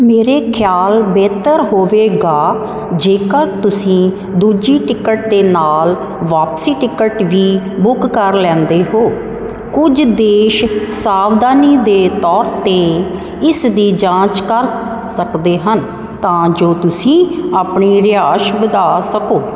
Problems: constant background noise